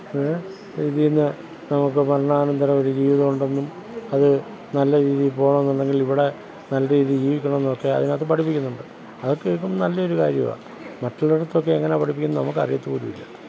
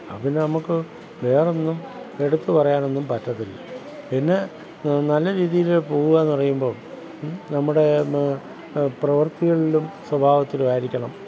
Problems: background sounds at intervals